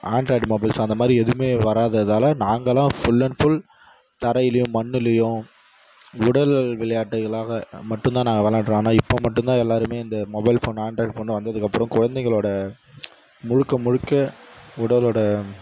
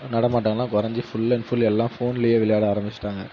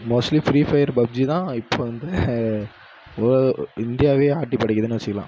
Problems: background sounds at intervals